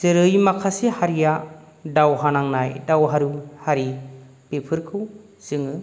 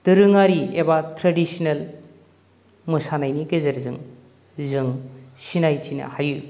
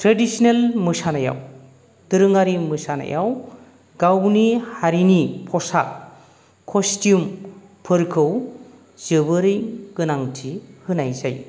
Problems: none marked